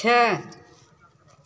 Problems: background sounds at intervals